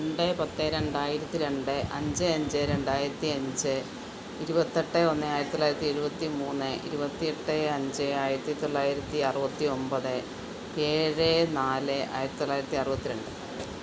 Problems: constant background noise, low volume